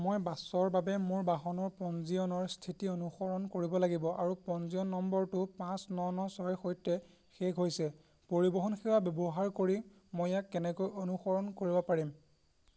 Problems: constant background noise